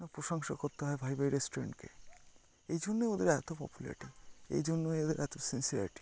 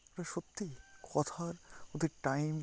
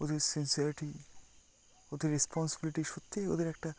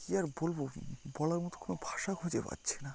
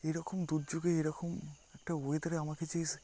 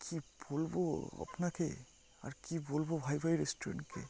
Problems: constant background noise